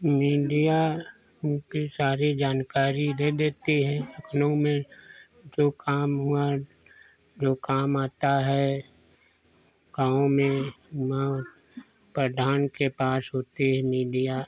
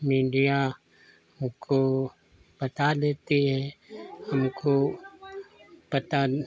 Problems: none marked